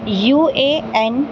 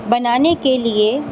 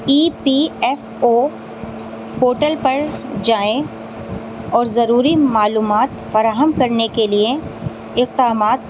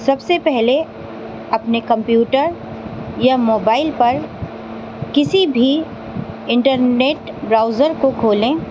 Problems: constant background noise